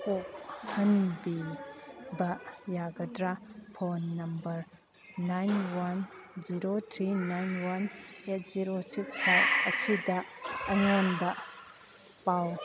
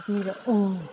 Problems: background sounds at intervals, background conversations at intervals